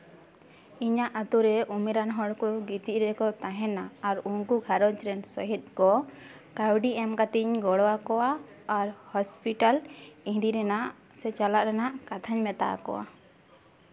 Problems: constant background noise, continuous background conversations